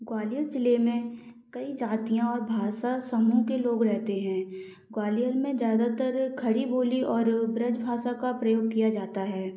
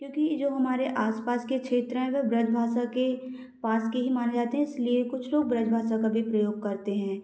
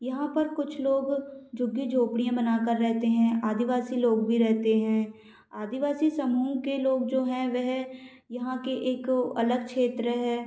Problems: none marked